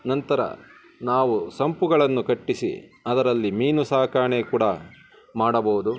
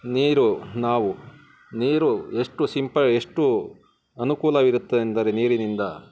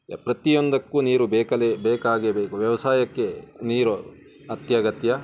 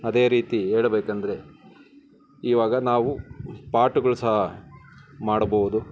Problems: constant background noise